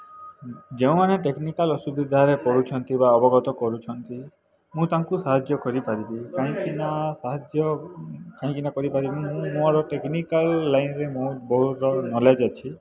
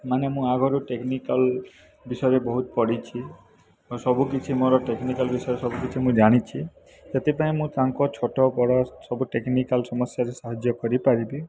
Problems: none marked